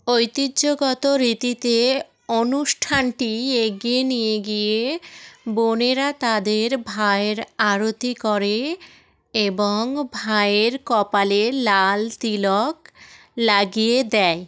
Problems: continuous background conversations